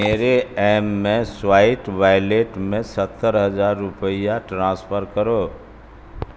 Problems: constant background noise